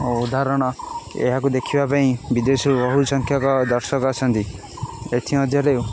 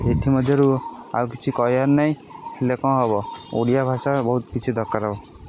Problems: constant background noise